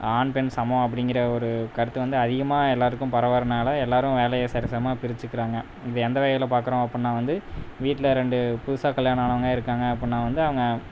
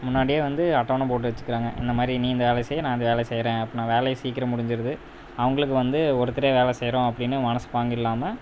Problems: constant background noise